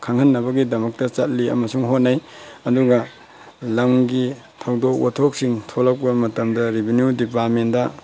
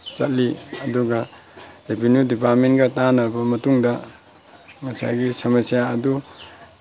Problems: background sounds at intervals